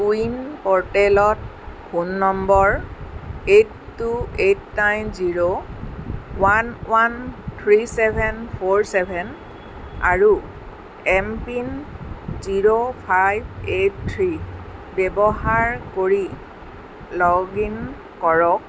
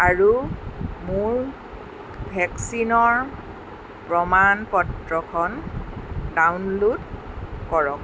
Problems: none marked